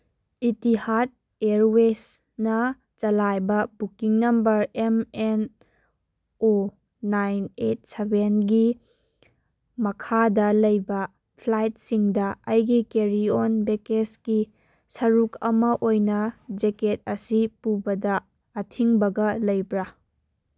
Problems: none marked